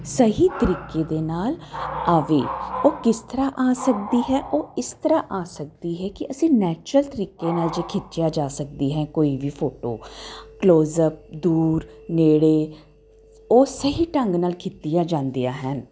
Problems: constant background noise